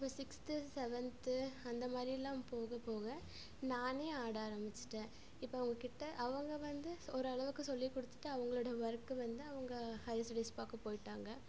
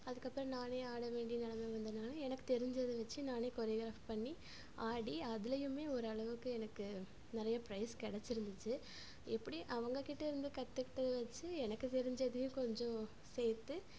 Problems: low volume